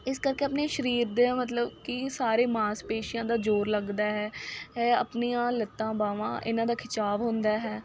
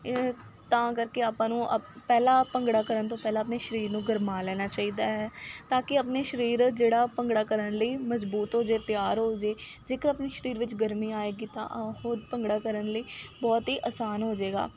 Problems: background sounds at intervals